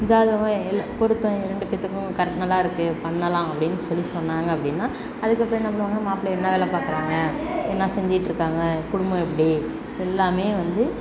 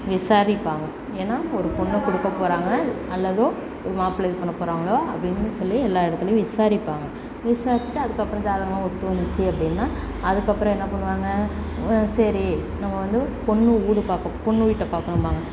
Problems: background conversations at intervals